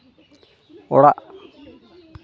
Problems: constant background noise